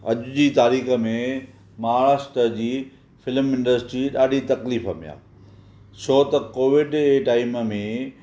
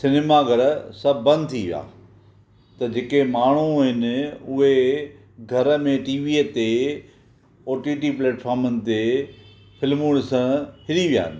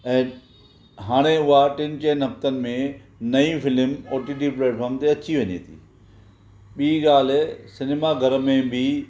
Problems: none marked